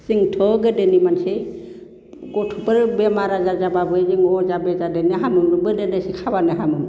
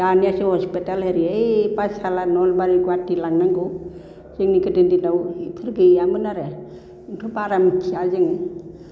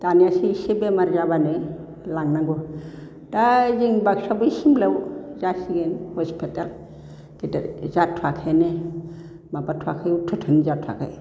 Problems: none marked